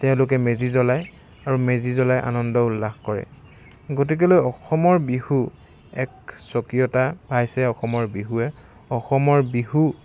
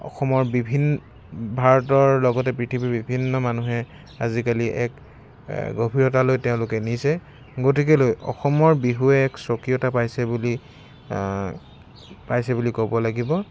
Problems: constant background noise